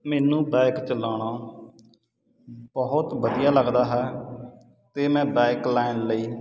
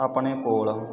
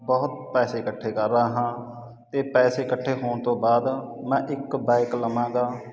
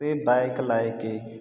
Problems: none marked